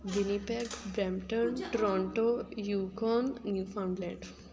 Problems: constant background noise, background conversations at intervals